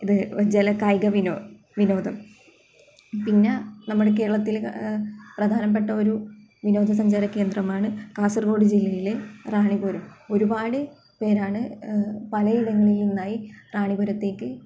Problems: background sounds at intervals